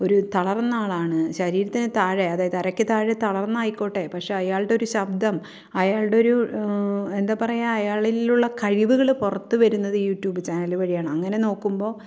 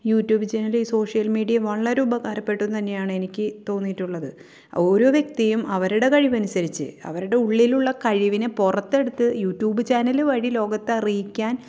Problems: none marked